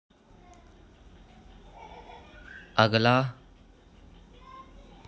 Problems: none marked